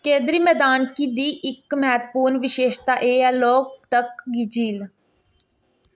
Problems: constant background noise